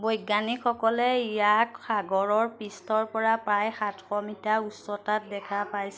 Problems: none marked